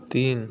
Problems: constant background noise